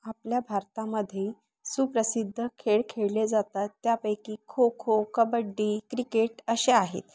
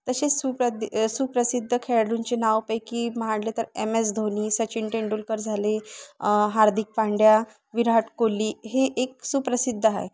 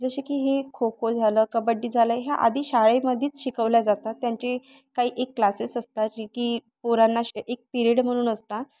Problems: none marked